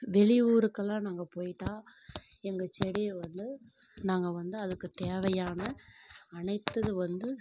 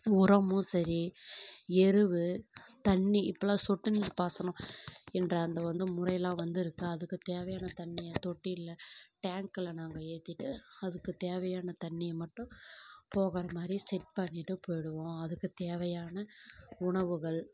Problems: background sounds at intervals, low volume